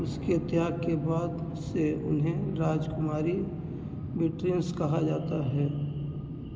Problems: constant background noise